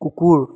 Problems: none marked